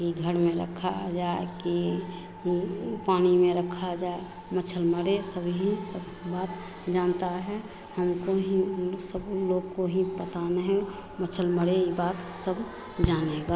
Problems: none marked